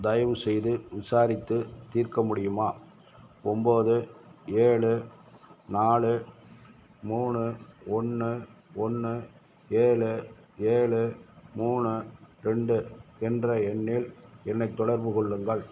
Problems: none marked